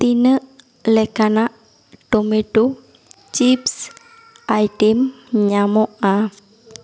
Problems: echo